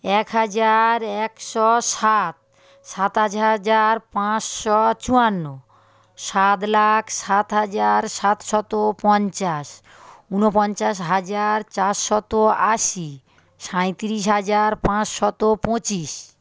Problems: constant background noise